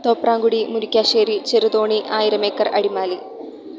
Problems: low volume